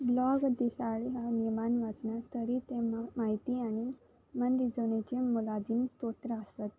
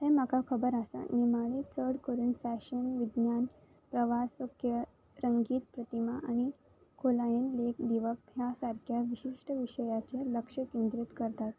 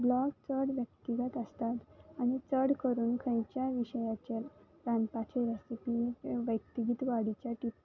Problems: background sounds at intervals